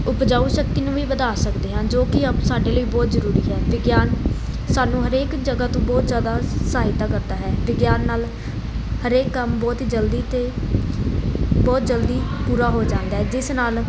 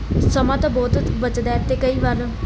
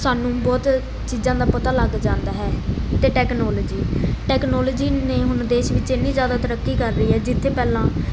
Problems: constant background noise